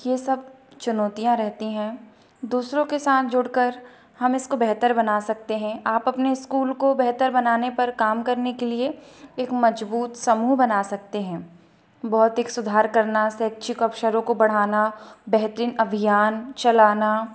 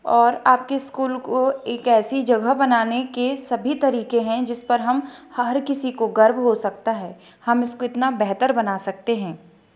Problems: none marked